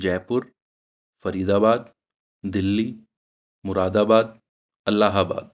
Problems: background sounds at intervals